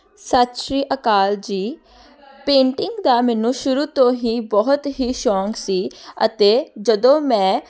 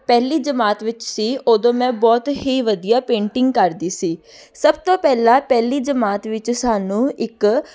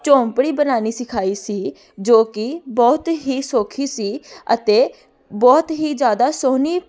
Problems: none marked